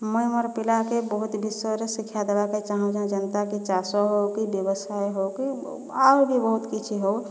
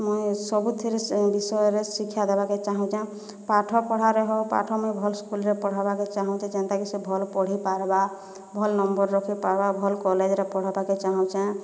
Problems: background conversations at intervals